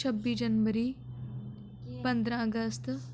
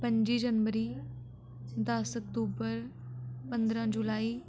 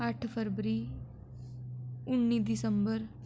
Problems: background sounds at intervals, echo